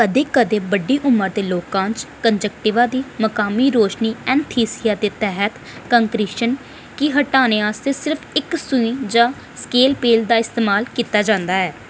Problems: none marked